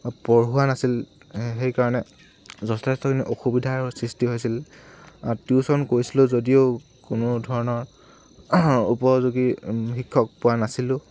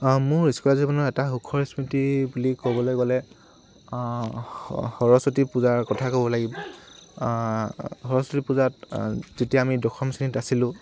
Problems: none marked